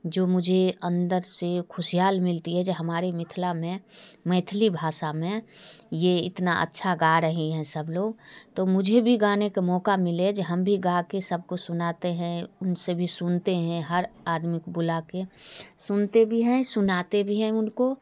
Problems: background sounds at intervals, low volume